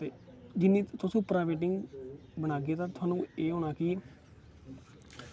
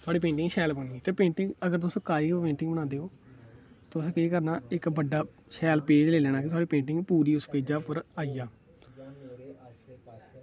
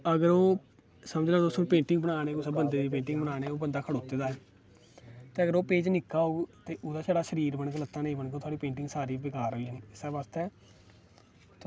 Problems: none marked